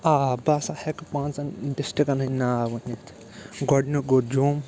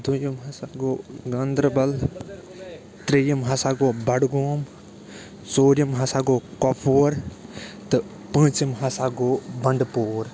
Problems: constant background noise, background conversations at intervals